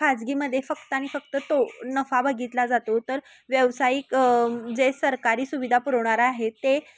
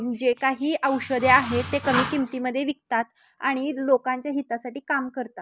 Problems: constant background noise, background conversations at intervals